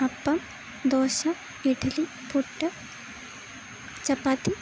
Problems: constant background noise